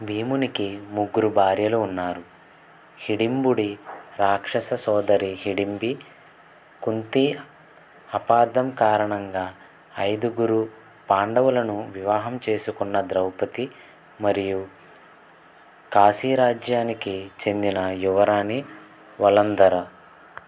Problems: background sounds at intervals